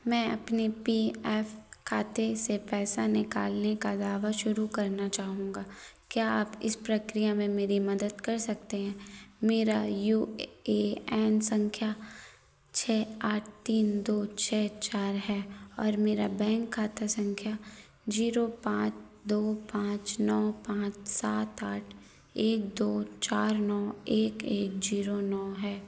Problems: none marked